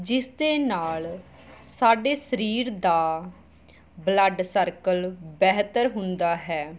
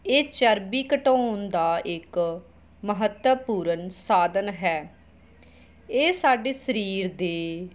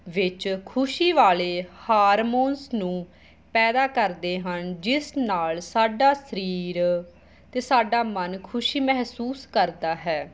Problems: background sounds at intervals